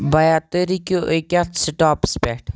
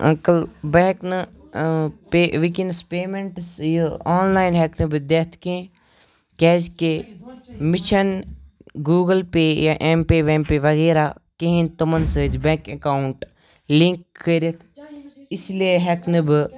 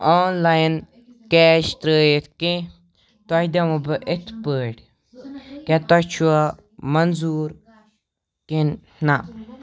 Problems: continuous background conversations